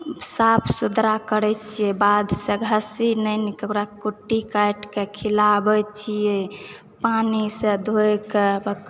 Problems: background sounds at intervals